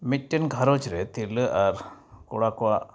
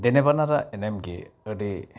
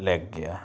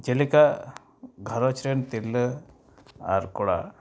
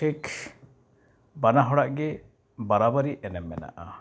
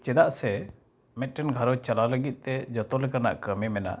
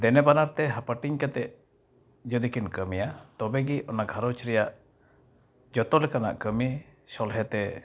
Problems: background sounds at intervals